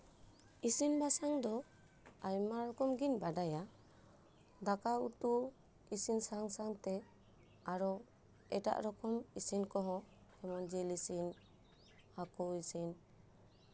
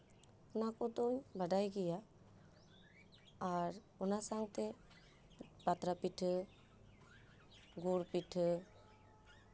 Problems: background sounds at intervals